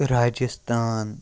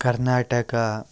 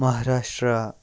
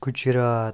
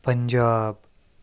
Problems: constant background noise